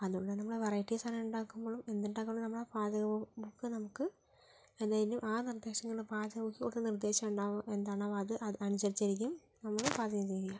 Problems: low volume